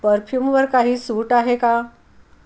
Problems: none marked